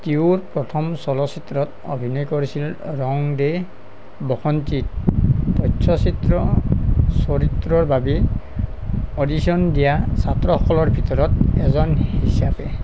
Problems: none marked